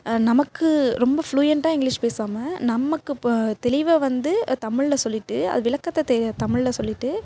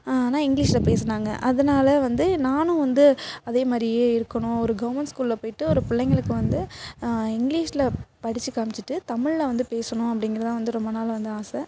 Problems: background sounds at intervals